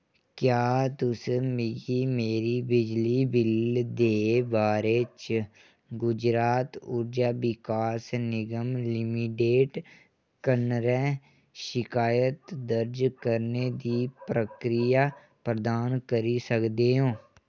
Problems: none marked